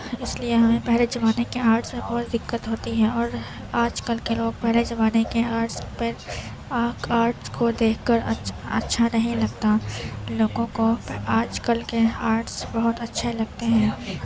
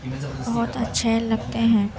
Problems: constant background noise, low volume